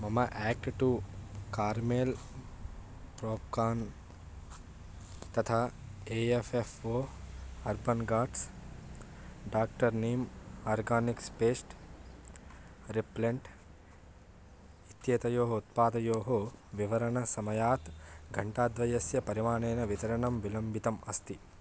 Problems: none marked